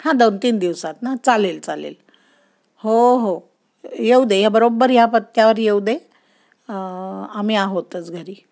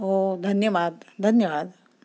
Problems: none marked